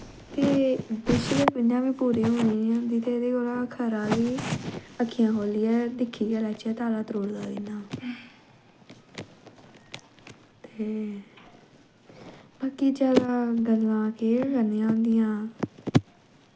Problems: background sounds at intervals